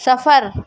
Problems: constant background noise